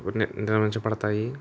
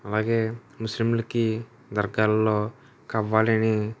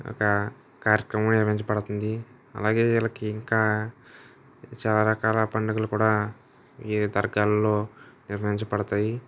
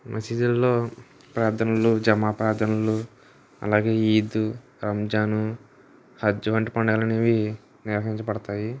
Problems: none marked